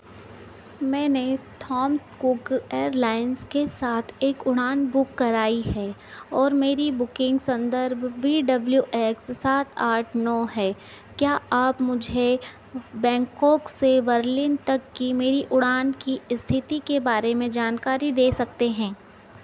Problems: background sounds at intervals